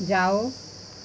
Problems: none marked